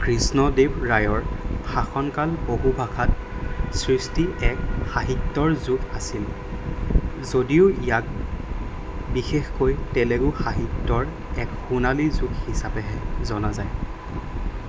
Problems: constant background noise